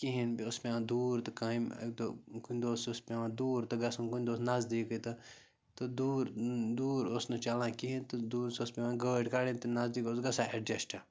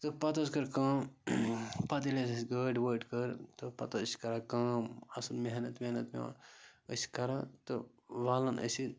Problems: constant background noise